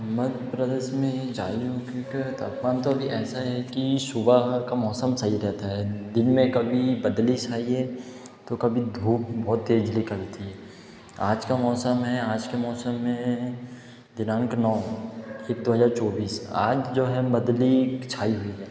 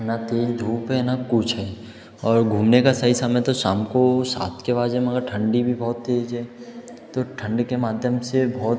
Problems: background conversations at intervals, echo